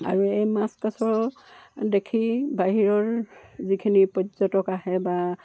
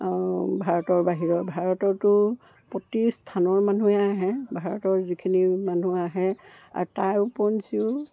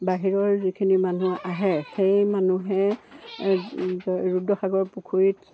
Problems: background sounds at intervals